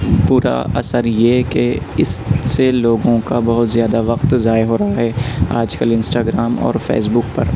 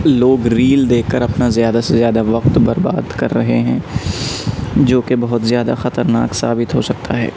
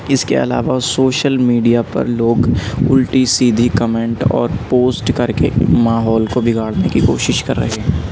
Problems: constant background noise